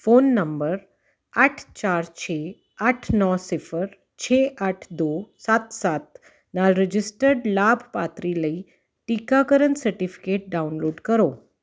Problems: constant background noise